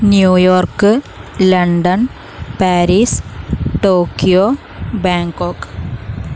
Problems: constant background noise